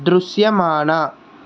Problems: constant background noise